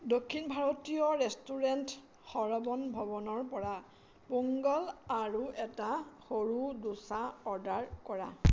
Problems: none marked